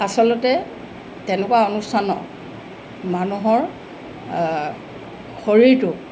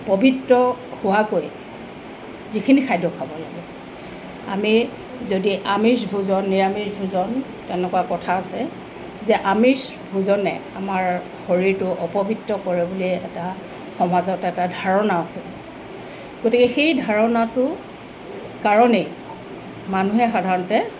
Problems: constant background noise